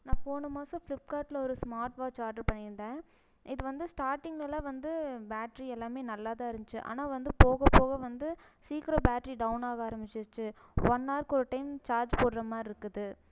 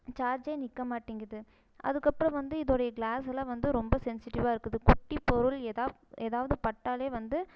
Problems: none marked